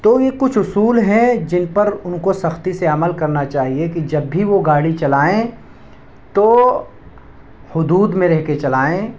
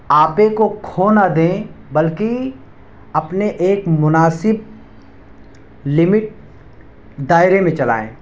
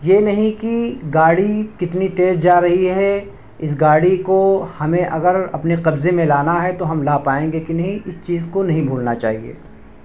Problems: constant background noise